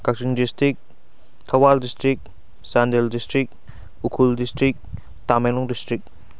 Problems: none marked